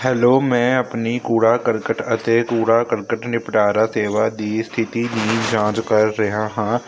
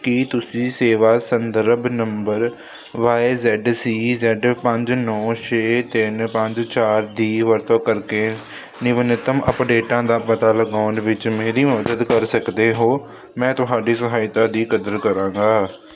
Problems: constant background noise